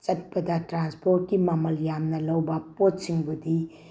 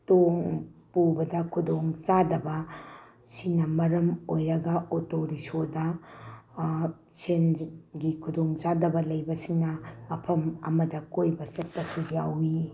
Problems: background sounds at intervals